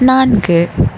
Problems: background sounds at intervals